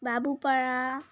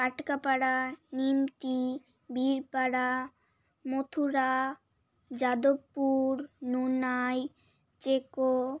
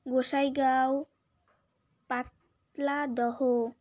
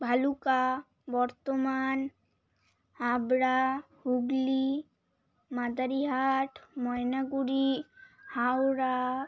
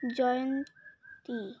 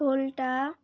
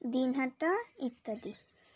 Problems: constant background noise, background conversations at intervals